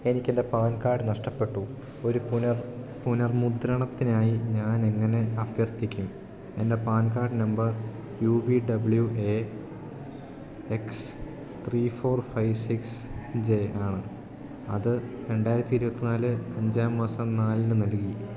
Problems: background sounds at intervals